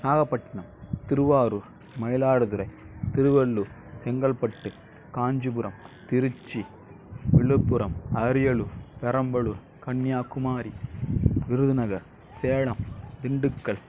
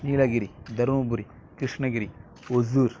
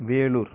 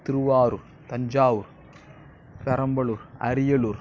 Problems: none marked